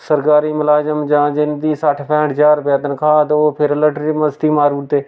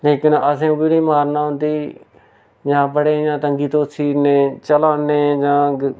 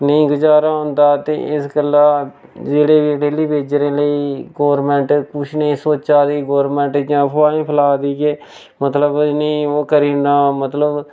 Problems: none marked